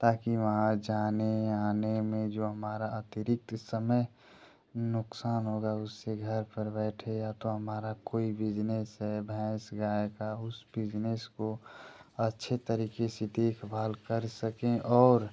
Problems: constant background noise